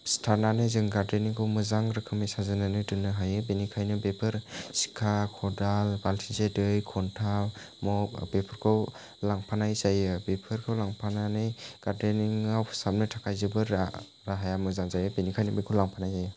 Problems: none marked